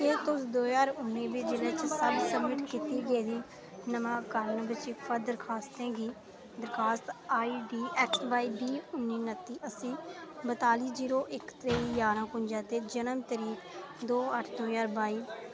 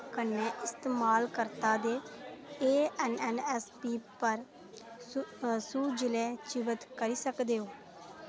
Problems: none marked